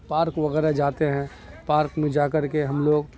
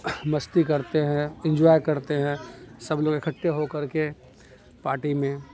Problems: constant background noise